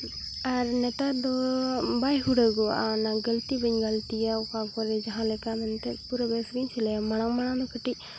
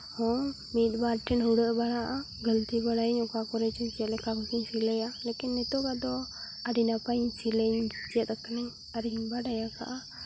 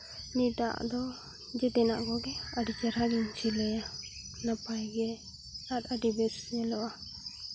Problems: none marked